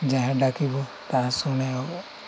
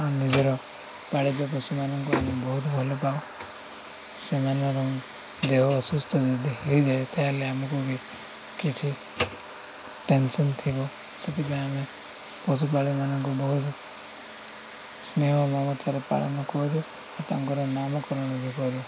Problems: none marked